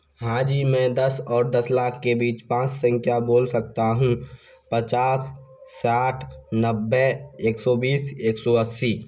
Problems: constant background noise